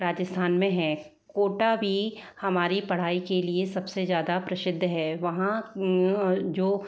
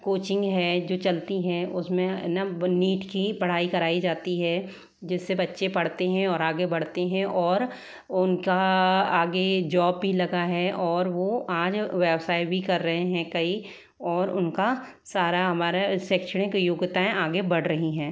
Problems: background sounds at intervals